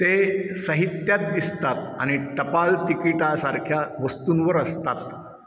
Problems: echo